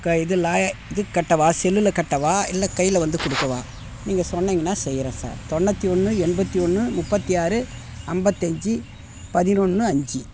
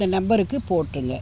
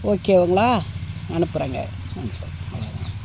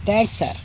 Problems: constant background noise